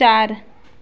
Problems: none marked